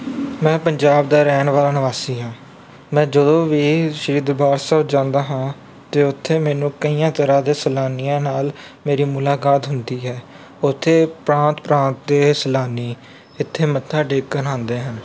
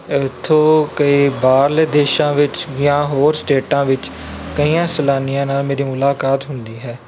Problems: none marked